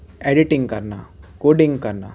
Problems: constant background noise